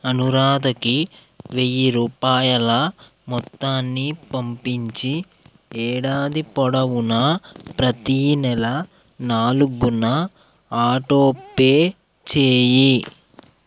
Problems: background sounds at intervals